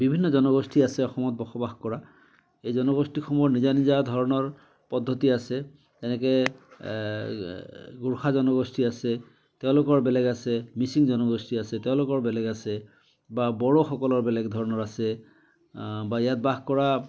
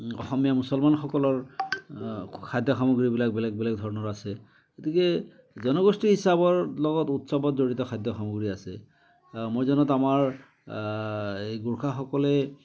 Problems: constant background noise